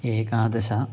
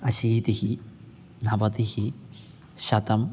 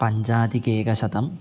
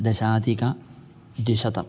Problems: background sounds at intervals